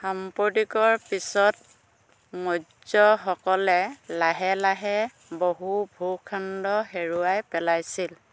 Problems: none marked